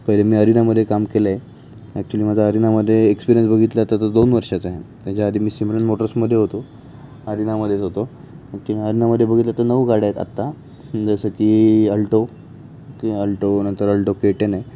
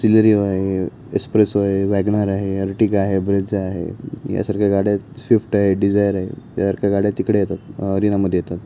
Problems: none marked